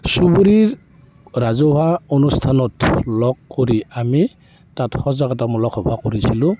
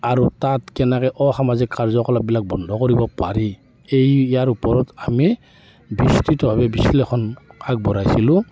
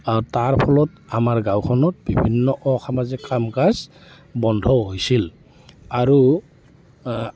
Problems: constant background noise